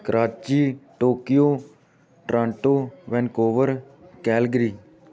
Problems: background sounds at intervals